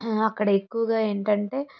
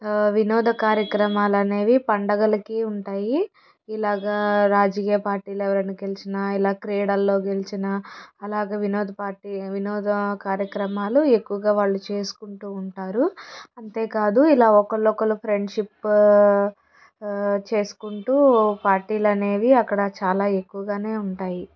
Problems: background sounds at intervals